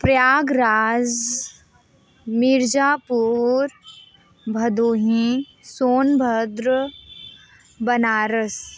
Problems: constant background noise